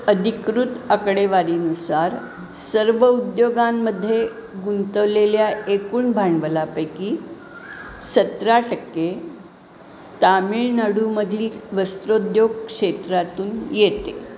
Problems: none marked